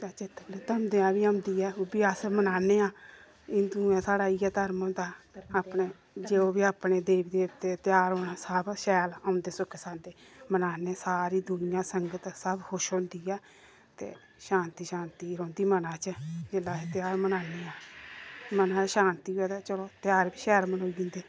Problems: none marked